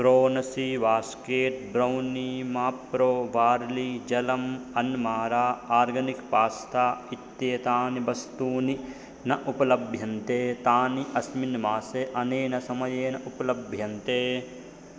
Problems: constant background noise